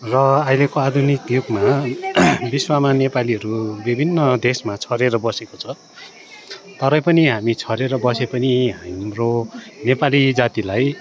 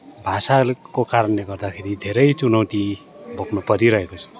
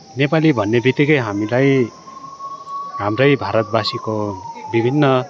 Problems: background sounds at intervals